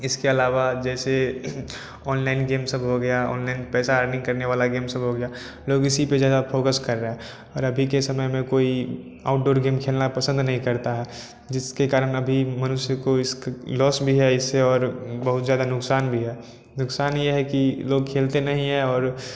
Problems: none marked